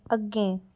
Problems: none marked